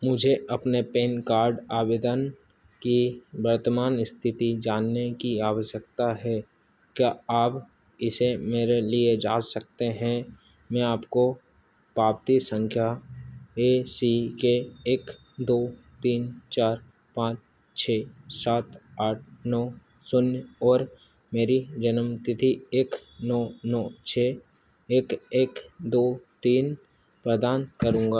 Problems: constant background noise